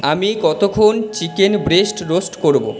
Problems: background sounds at intervals